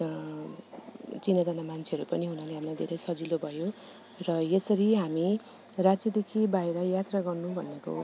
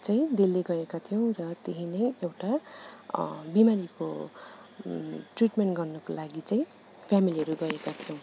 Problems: none marked